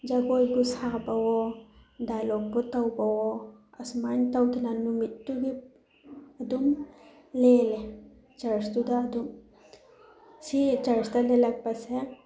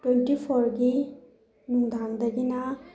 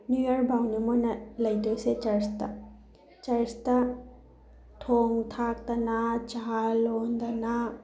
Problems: none marked